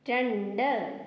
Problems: low volume